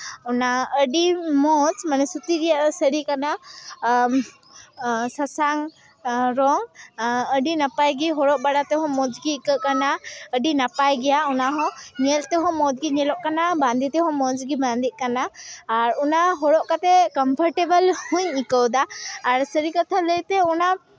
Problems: none marked